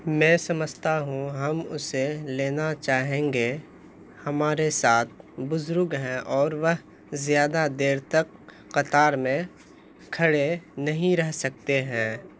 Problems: constant background noise